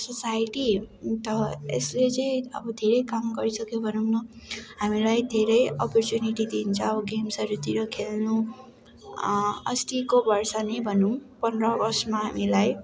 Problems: constant background noise